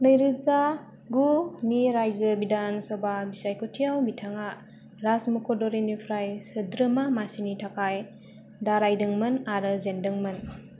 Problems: none marked